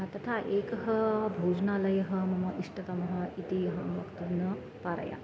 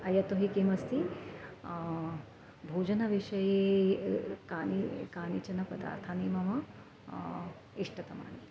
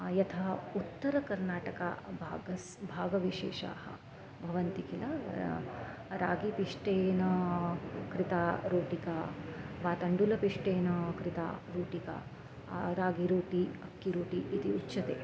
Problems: background sounds at intervals, background conversations at intervals